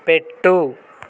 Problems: constant background noise